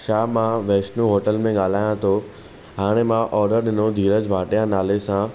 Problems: none marked